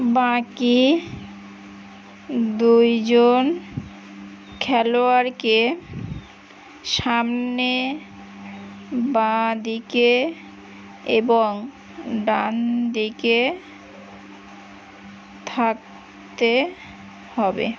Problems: constant background noise